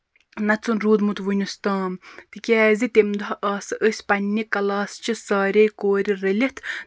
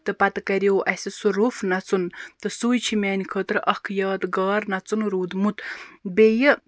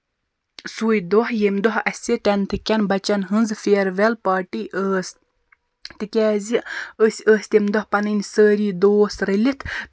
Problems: background sounds at intervals